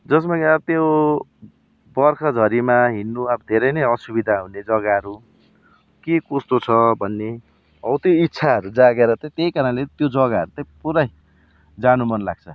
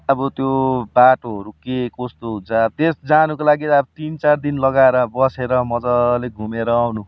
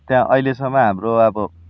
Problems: background sounds at intervals